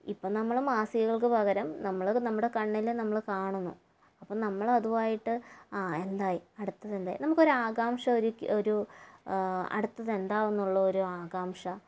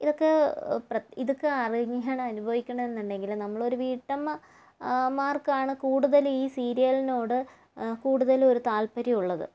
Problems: low volume